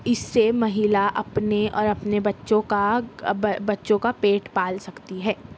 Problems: none marked